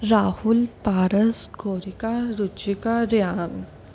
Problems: none marked